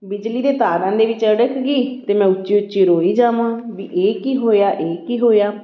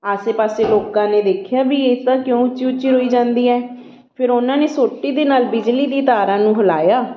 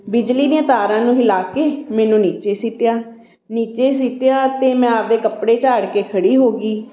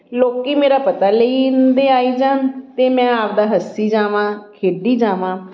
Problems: none marked